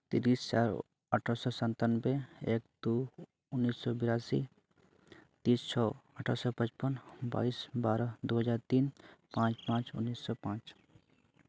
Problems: none marked